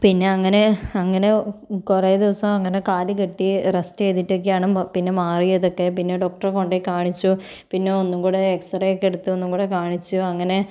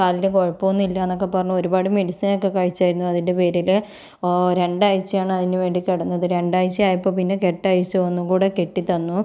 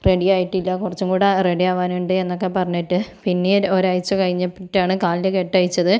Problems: none marked